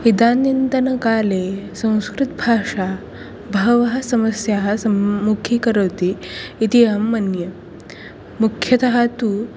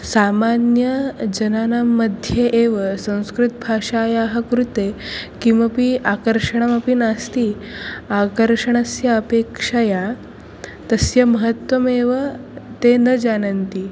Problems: continuous background conversations